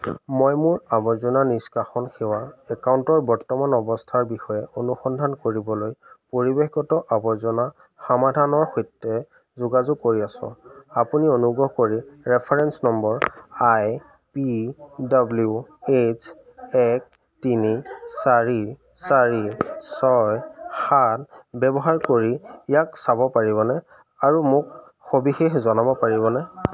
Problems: constant background noise, background conversations at intervals